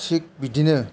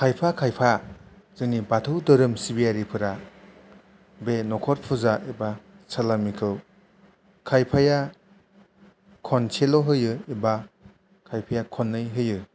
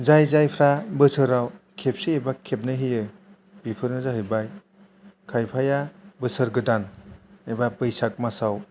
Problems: low volume